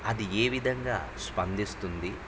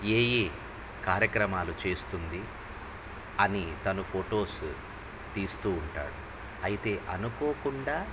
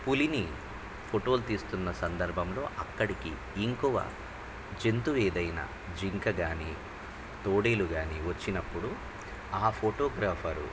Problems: none marked